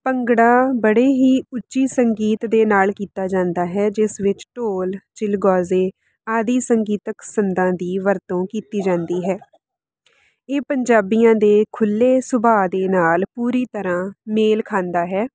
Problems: none marked